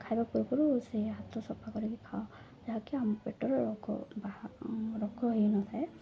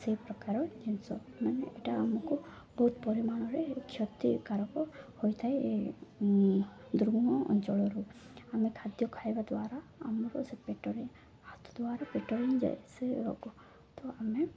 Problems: none marked